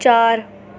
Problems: constant background noise